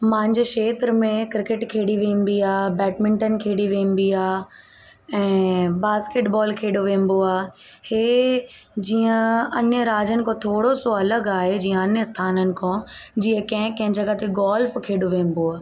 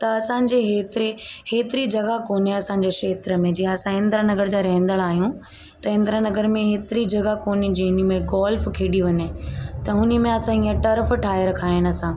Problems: constant background noise, echo